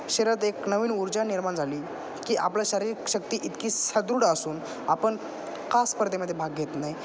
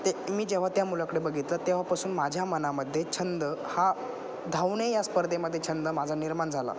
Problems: constant background noise, background conversations at intervals